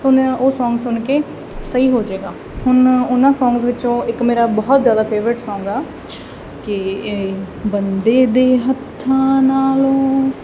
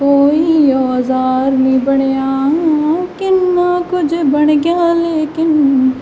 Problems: none marked